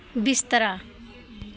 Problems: constant background noise